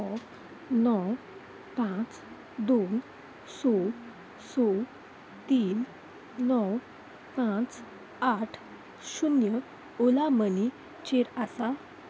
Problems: constant background noise